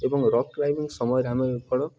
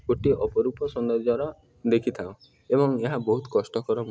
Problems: background sounds at intervals